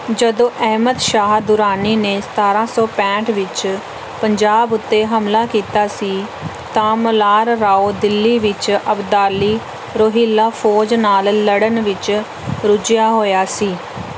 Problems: constant background noise